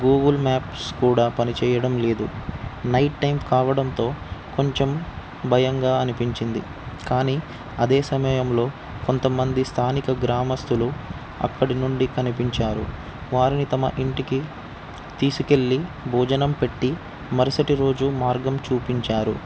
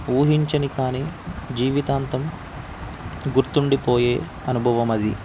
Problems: constant background noise